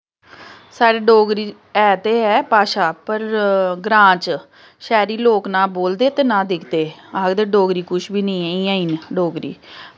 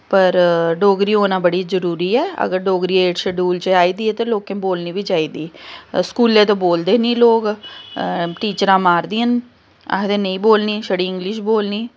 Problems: constant background noise